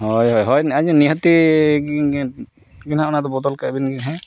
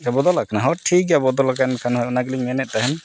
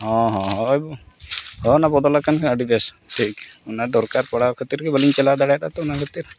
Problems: background sounds at intervals